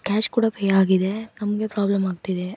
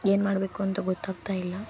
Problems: background sounds at intervals